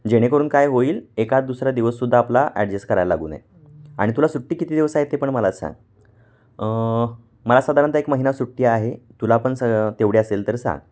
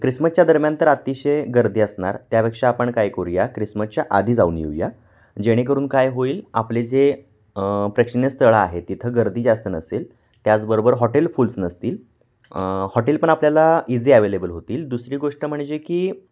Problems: background sounds at intervals